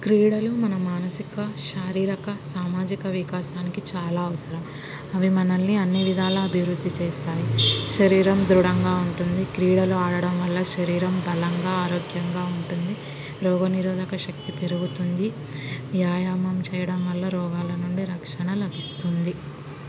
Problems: constant background noise